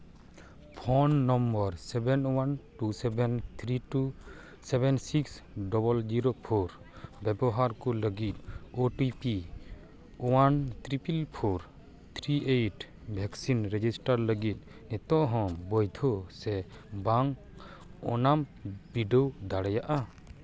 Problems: none marked